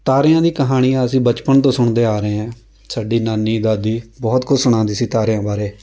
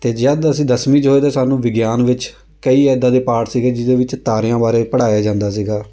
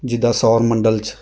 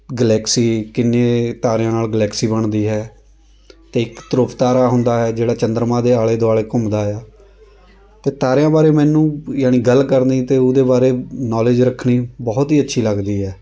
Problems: background sounds at intervals, background conversations at intervals